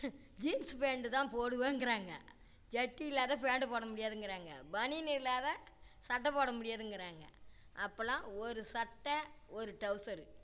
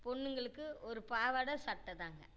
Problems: low volume